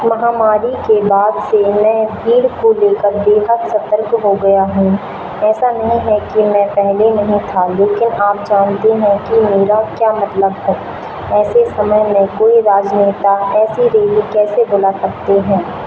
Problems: constant background noise